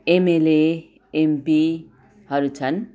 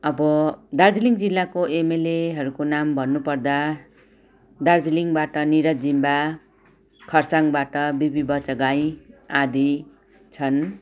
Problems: background sounds at intervals, background conversations at intervals